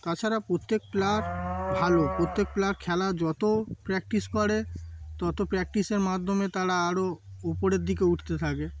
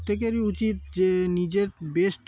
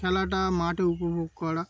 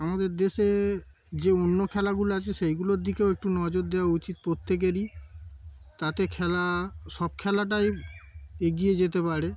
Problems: constant background noise, background conversations at intervals